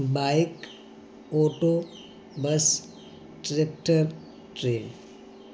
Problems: constant background noise